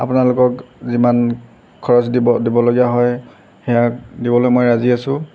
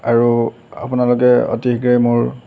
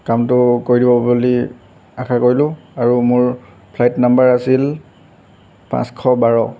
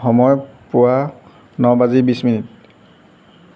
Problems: background sounds at intervals